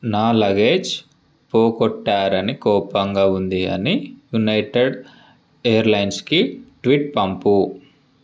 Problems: none marked